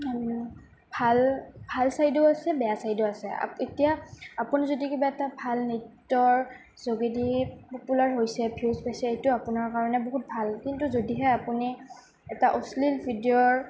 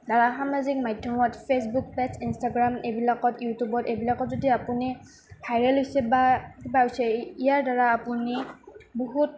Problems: background sounds at intervals